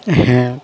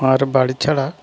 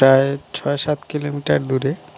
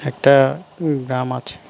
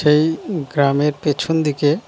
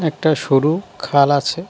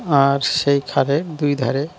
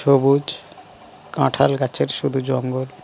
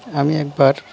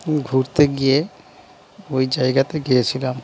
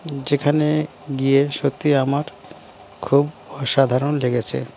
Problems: none marked